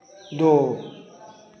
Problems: constant background noise